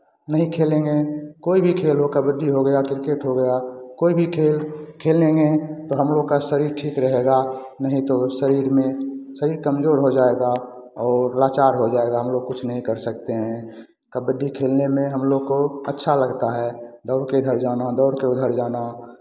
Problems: none marked